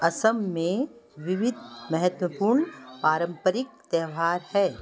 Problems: constant background noise